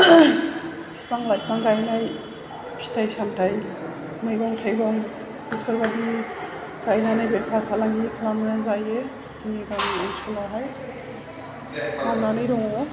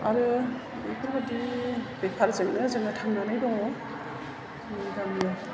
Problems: none marked